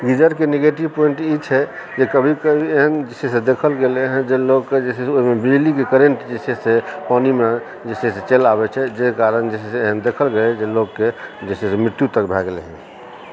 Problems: background conversations at intervals